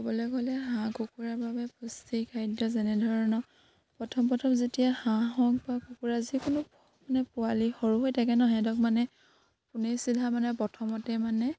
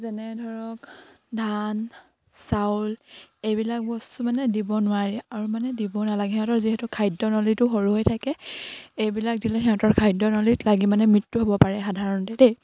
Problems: constant background noise